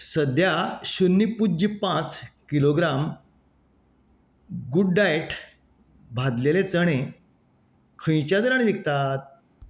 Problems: none marked